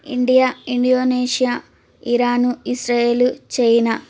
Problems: constant background noise